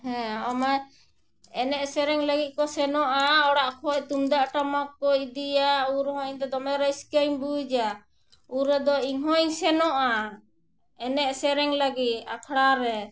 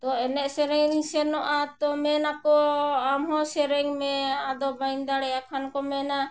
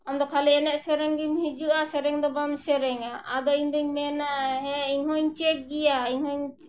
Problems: none marked